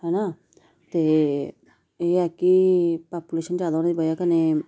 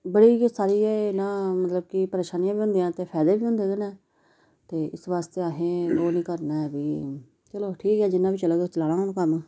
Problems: background sounds at intervals